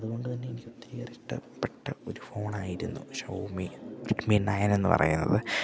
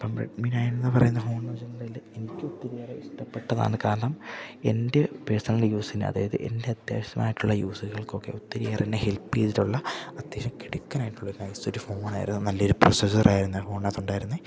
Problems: low volume